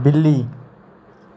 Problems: background sounds at intervals